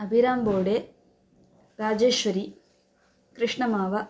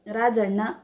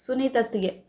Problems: background sounds at intervals